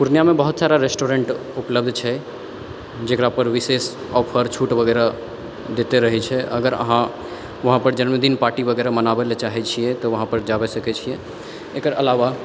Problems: background sounds at intervals, background conversations at intervals